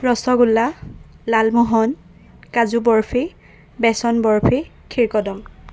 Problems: none marked